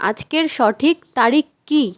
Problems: none marked